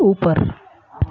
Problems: none marked